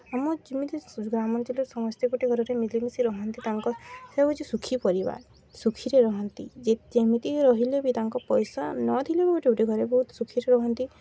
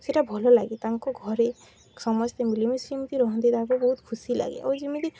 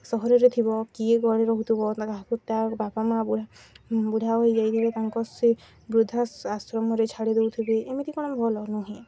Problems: none marked